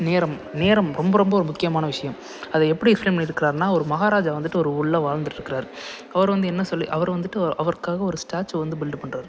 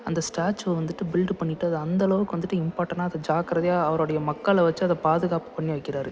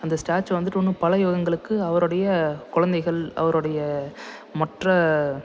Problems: none marked